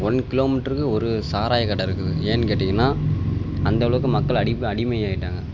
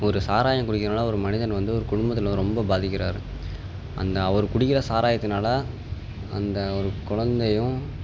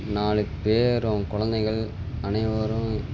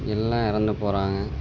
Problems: background sounds at intervals